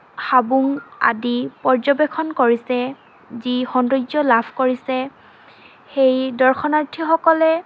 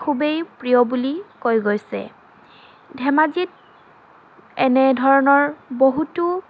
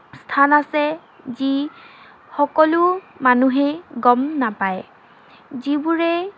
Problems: constant background noise, background conversations at intervals